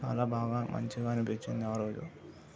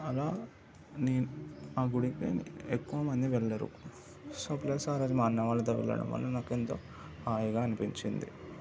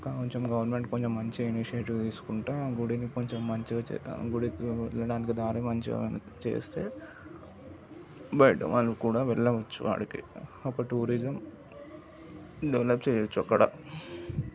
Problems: background sounds at intervals, continuous background conversations, low volume